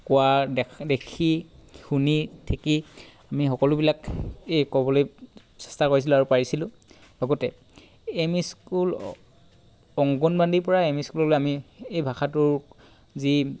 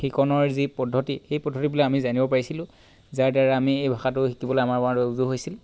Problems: background sounds at intervals